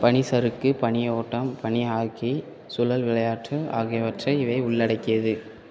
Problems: constant background noise